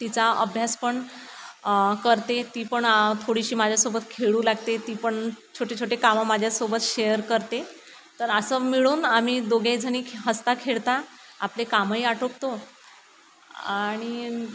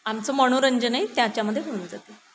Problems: constant background noise